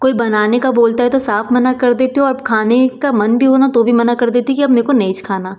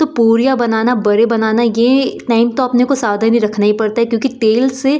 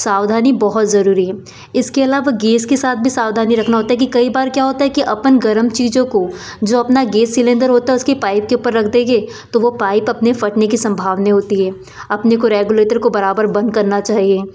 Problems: none marked